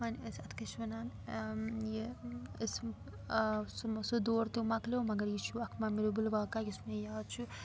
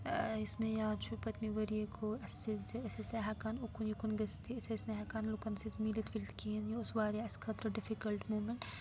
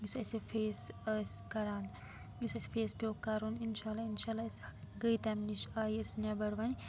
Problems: background sounds at intervals, low volume